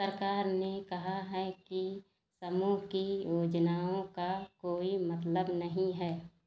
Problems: none marked